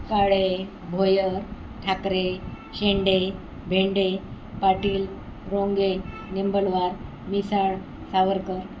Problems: none marked